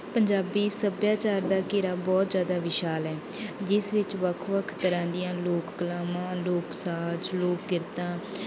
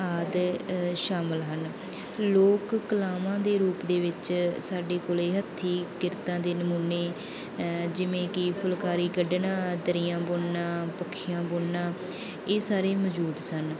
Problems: background conversations at intervals